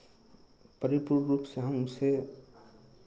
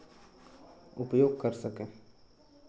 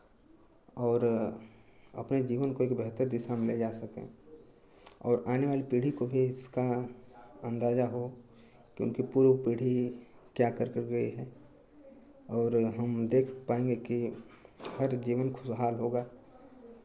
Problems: constant background noise